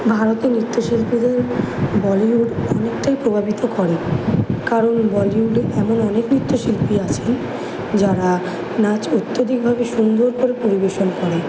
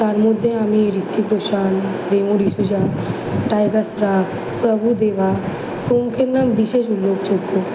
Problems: background sounds at intervals